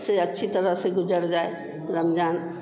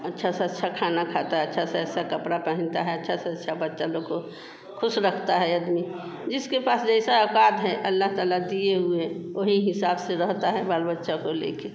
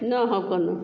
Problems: none marked